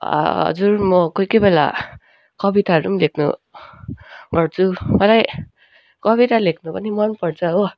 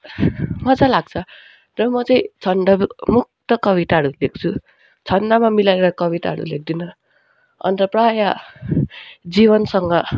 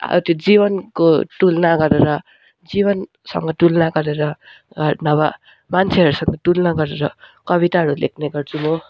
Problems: background sounds at intervals